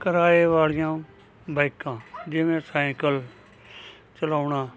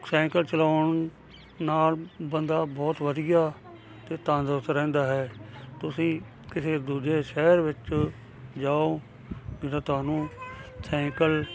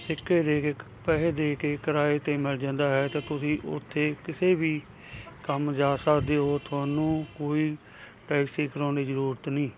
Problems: constant background noise